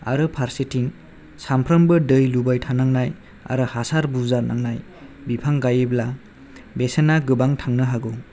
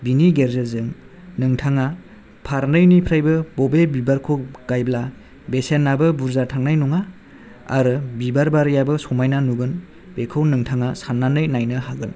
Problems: none marked